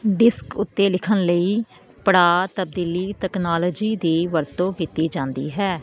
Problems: constant background noise